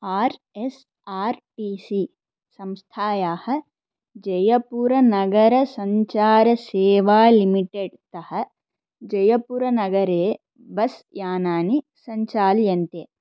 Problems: none marked